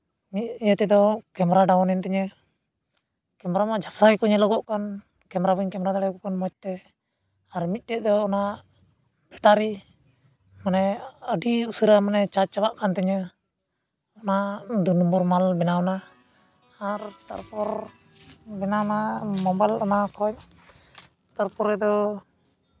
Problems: none marked